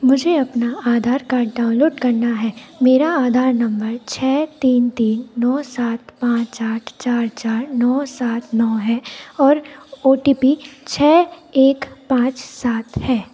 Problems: none marked